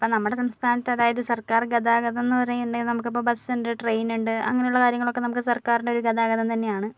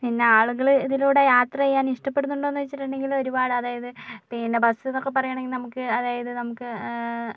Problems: background sounds at intervals